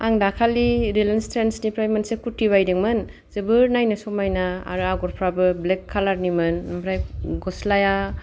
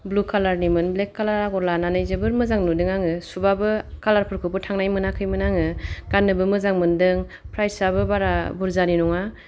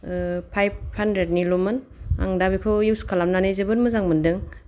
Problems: none marked